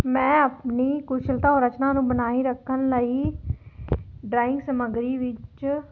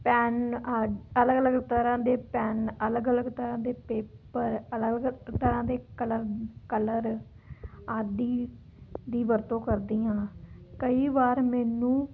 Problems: background conversations at intervals